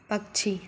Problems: background sounds at intervals